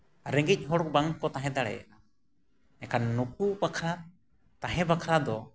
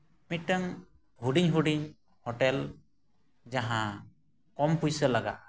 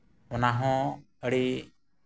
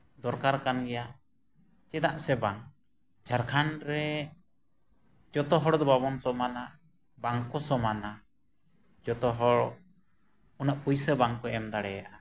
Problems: none marked